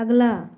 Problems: constant background noise